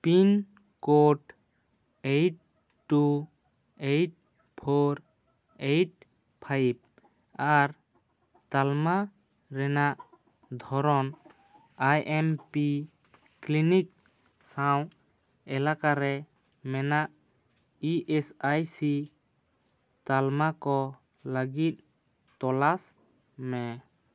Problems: none marked